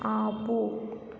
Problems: low volume